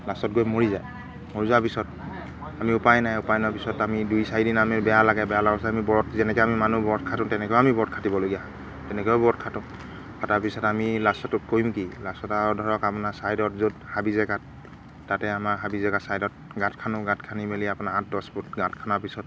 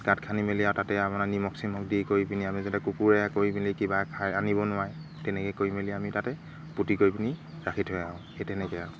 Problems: constant background noise